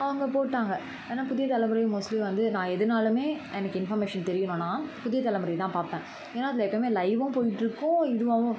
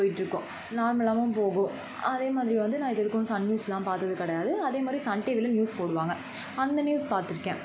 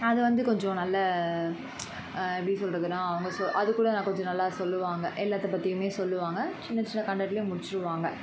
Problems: constant background noise